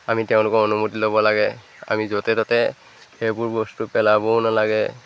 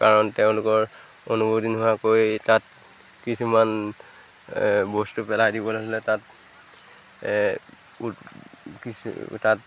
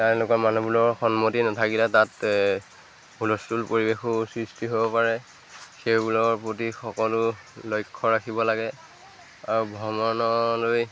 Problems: none marked